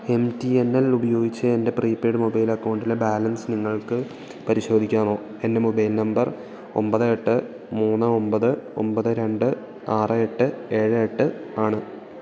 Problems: continuous background conversations